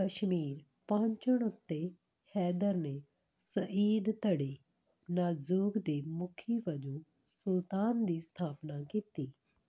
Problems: none marked